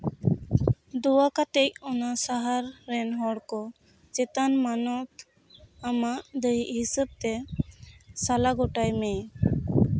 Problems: none marked